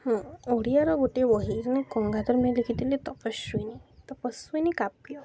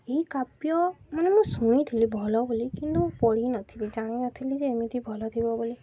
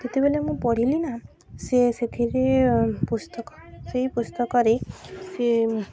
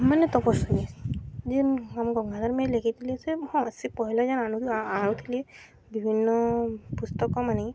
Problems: constant background noise, background conversations at intervals